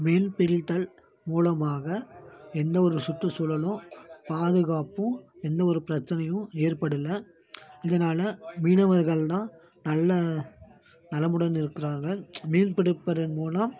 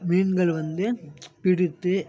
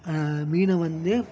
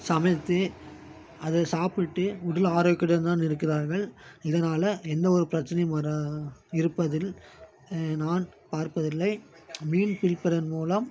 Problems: background conversations at intervals